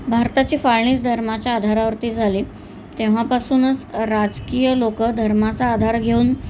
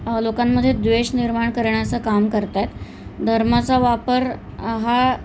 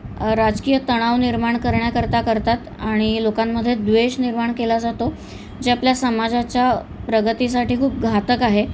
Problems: none marked